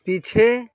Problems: constant background noise